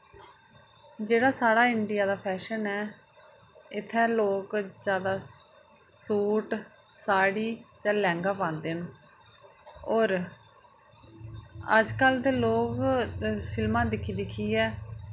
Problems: none marked